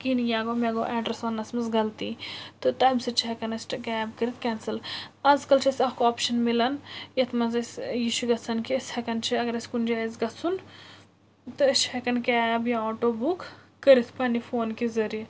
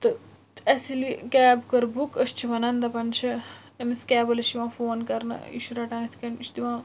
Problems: constant background noise